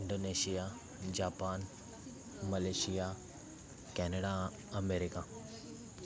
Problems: constant background noise, continuous background conversations